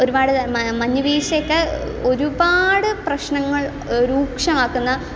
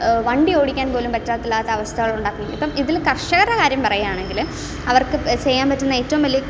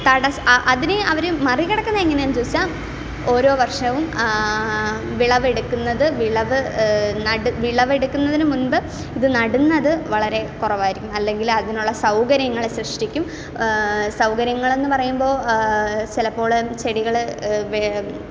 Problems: constant background noise